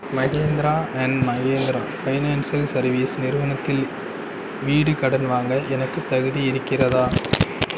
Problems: none marked